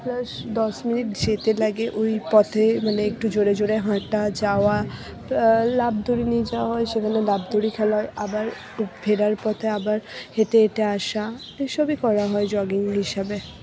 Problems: background sounds at intervals, background conversations at intervals, low volume